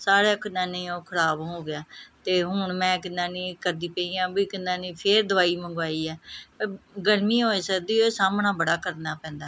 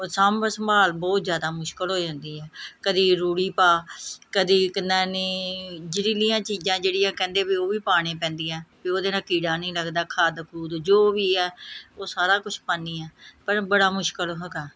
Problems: background sounds at intervals